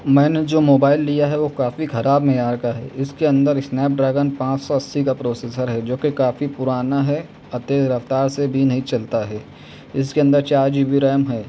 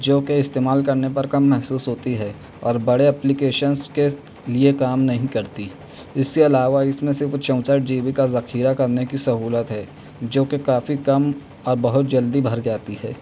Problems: none marked